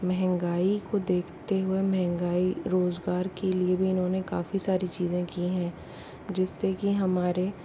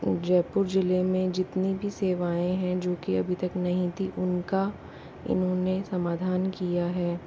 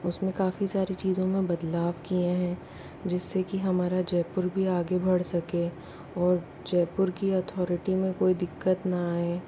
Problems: constant background noise, low volume